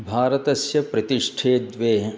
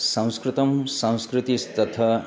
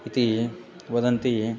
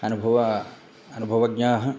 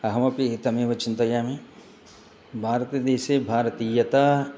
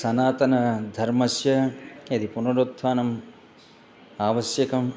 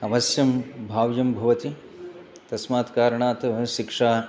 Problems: background conversations at intervals